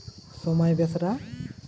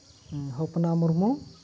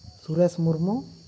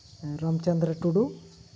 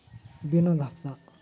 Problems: none marked